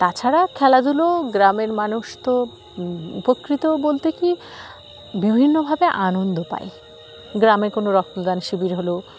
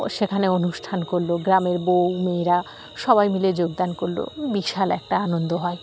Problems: constant background noise